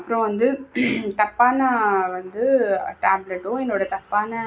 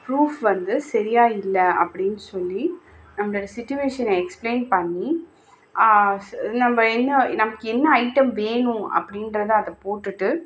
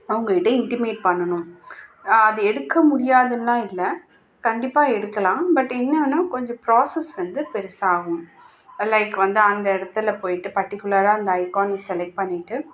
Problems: none marked